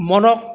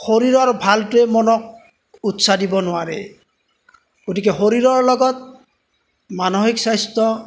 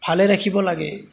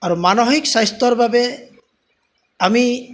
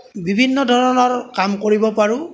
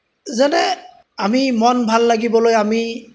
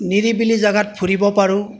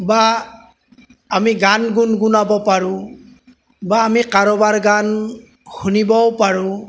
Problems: background sounds at intervals